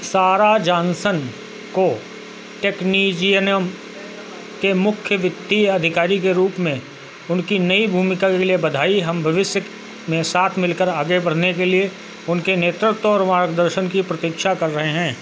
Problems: constant background noise